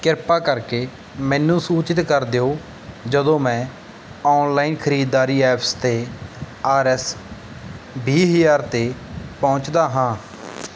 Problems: background sounds at intervals